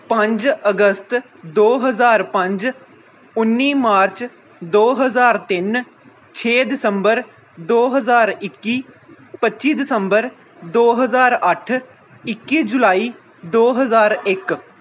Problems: constant background noise